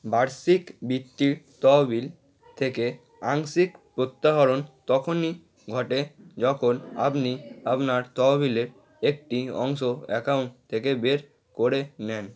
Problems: background sounds at intervals